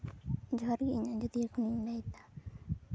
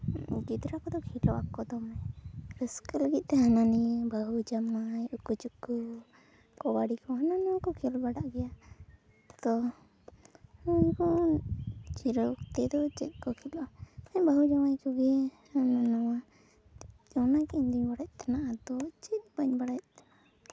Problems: background sounds at intervals, low volume